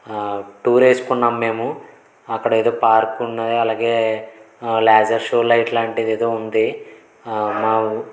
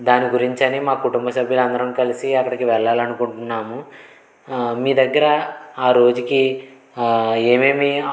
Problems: constant background noise